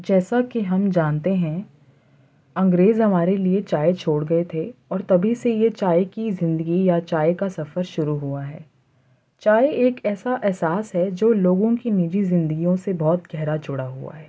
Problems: constant background noise